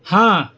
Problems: constant background noise